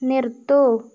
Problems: constant background noise